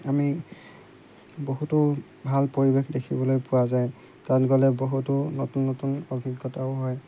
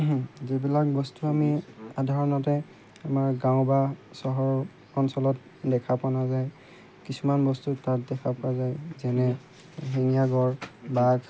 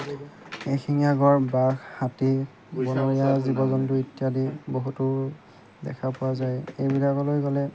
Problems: background sounds at intervals